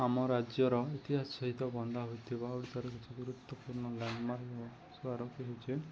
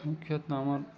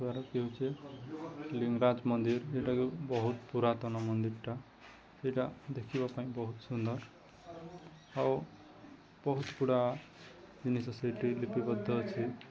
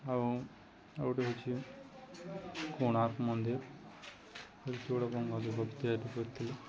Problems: constant background noise, continuous background conversations